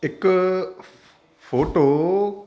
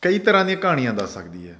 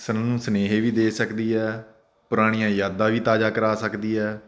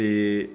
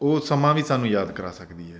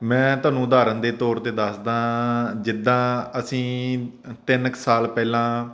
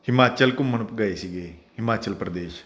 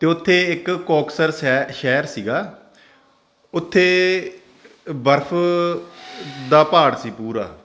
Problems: none marked